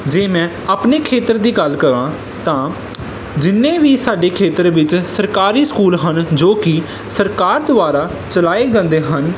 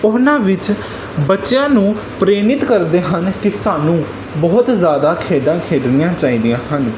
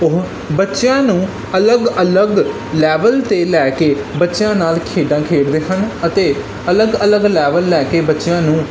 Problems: none marked